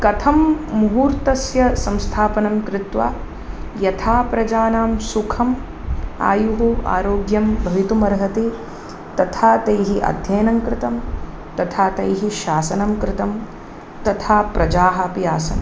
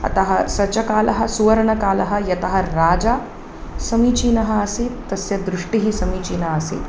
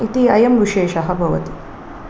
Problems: none marked